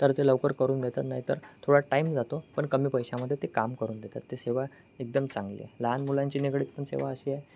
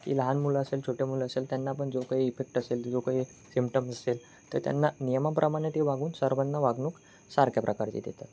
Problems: none marked